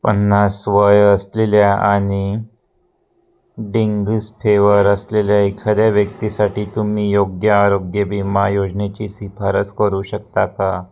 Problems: none marked